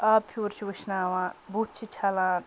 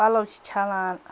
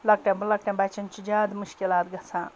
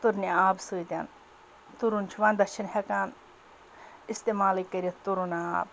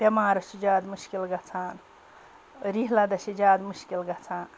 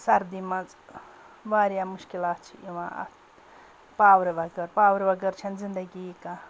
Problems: background conversations at intervals